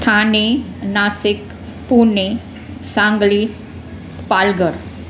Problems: constant background noise